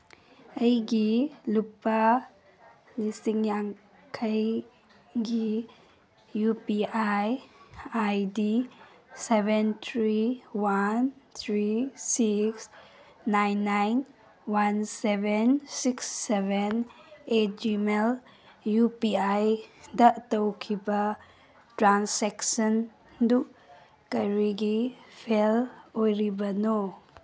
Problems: background sounds at intervals